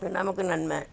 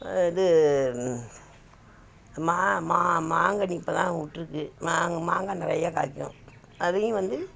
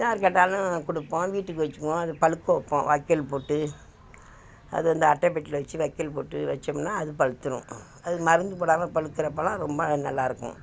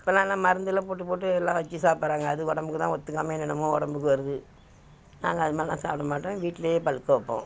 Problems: none marked